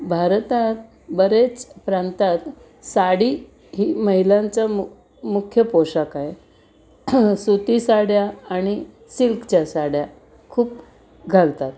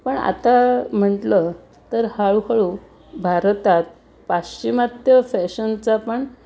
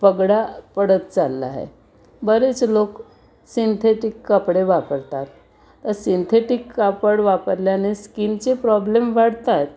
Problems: none marked